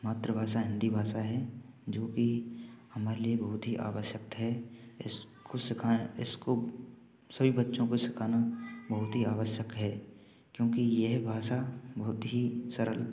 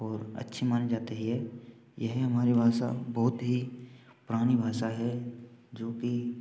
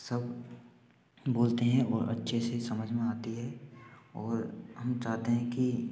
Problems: constant background noise